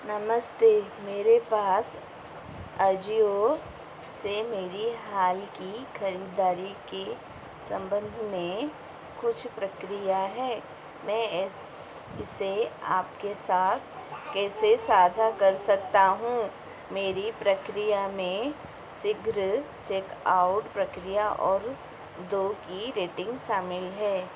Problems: constant background noise